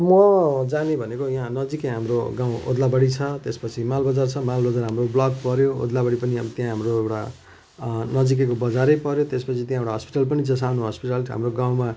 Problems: none marked